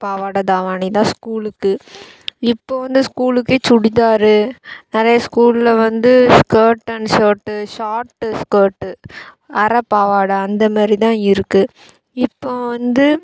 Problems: background sounds at intervals